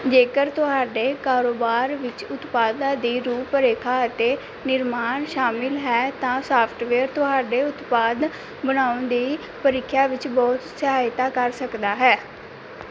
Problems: background sounds at intervals